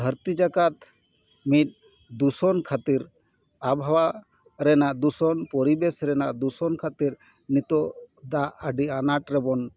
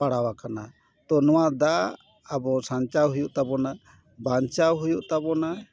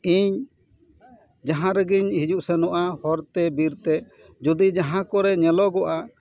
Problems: background conversations at intervals